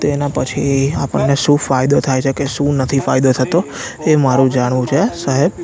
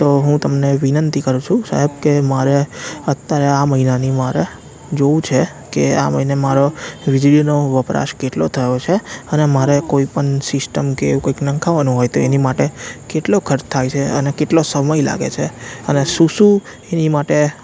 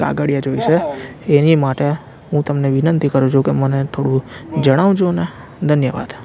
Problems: background conversations at intervals